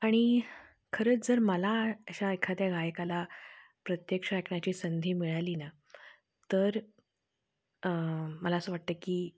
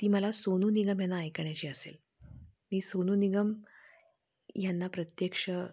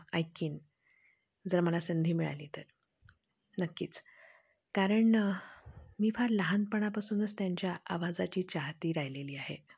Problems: constant background noise, low volume